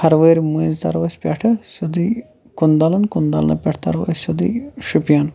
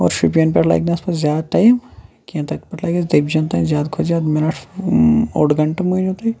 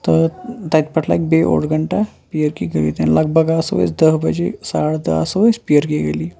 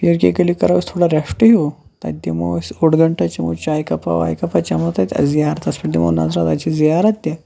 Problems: none marked